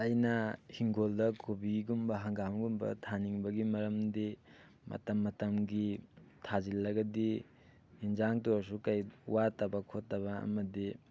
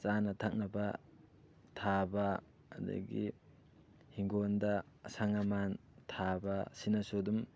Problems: none marked